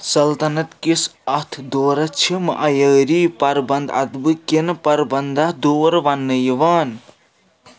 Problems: none marked